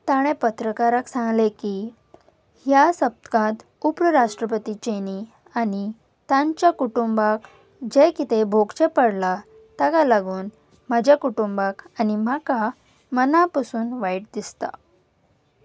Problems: none marked